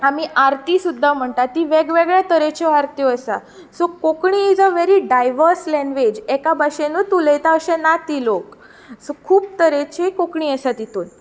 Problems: constant background noise